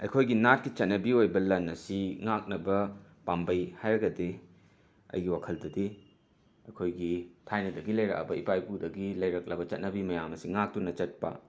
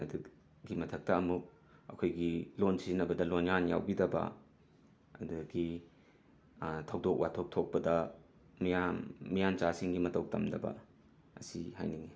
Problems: background sounds at intervals